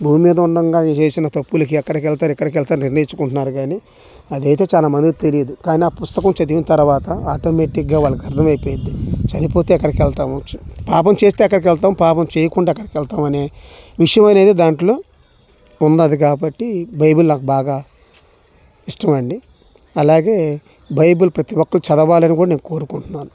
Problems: constant background noise